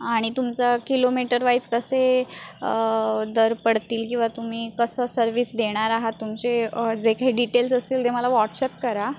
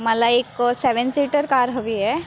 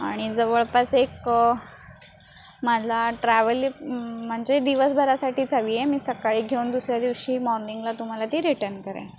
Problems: constant background noise